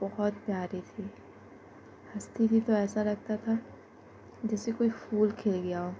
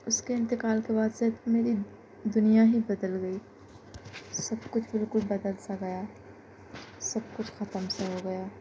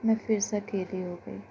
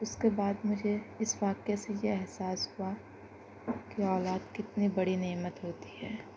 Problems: constant background noise